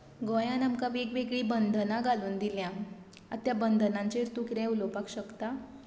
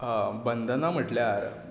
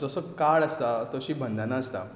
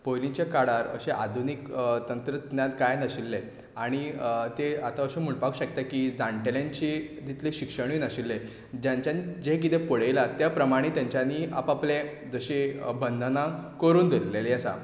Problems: none marked